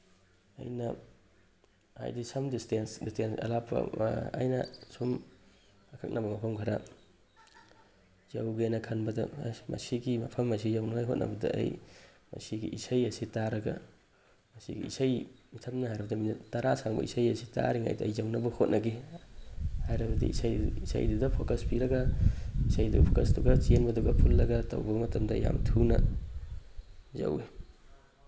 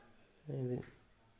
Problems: background sounds at intervals